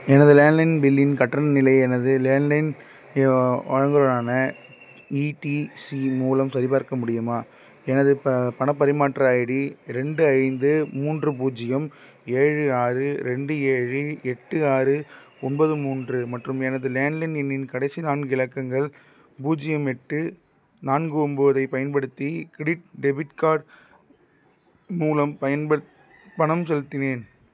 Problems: none marked